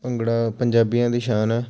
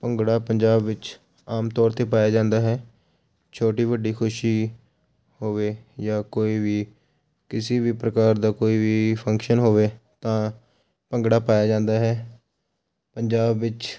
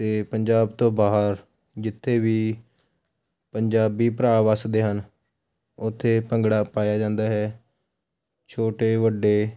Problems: none marked